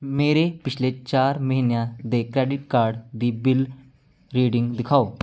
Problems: none marked